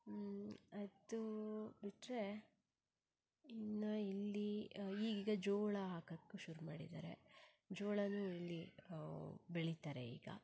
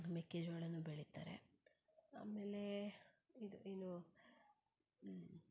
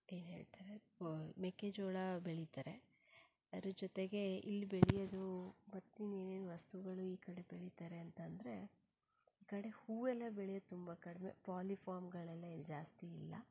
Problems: low volume